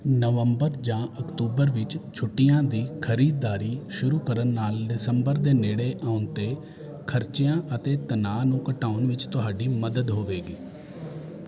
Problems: constant background noise